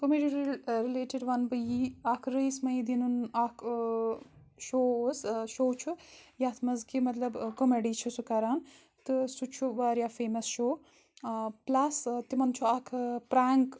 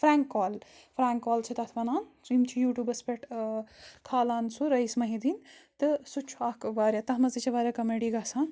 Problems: none marked